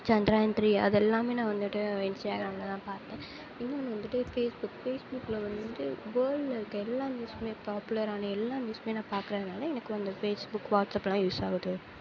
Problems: low volume